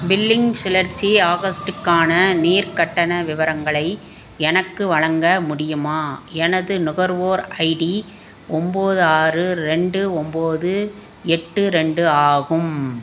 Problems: constant background noise